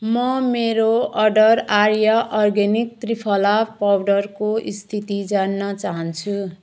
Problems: background sounds at intervals